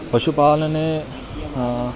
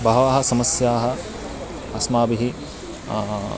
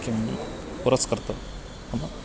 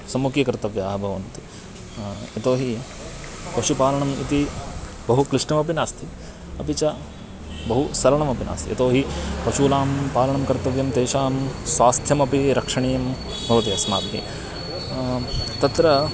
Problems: none marked